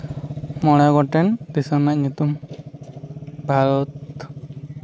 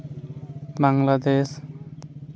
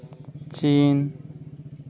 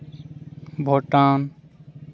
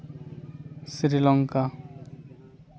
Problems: constant background noise